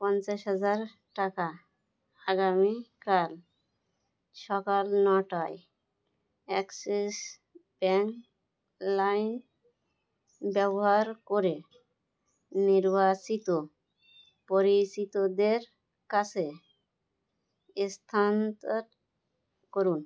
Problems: background sounds at intervals